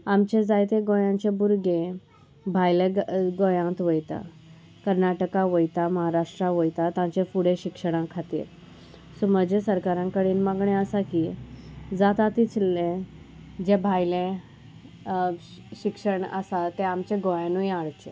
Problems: constant background noise